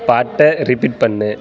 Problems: background sounds at intervals